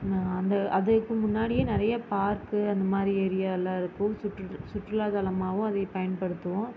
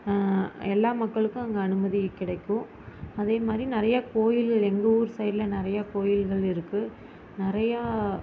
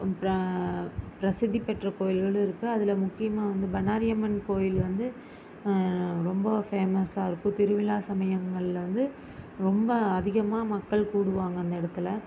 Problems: none marked